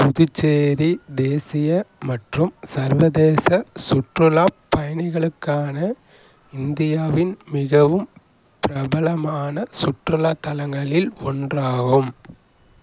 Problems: constant background noise